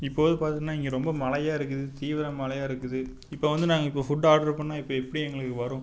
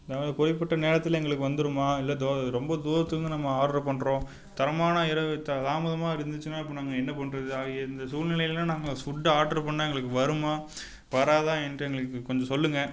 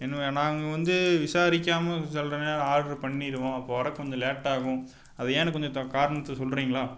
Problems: constant background noise